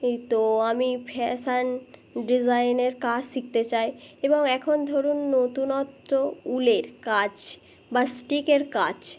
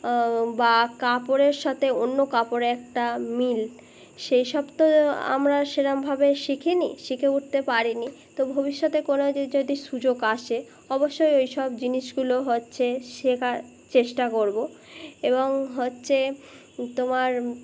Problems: constant background noise